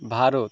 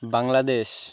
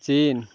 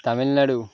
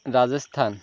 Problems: none marked